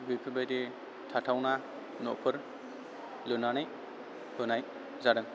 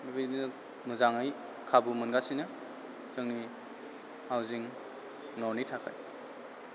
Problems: none marked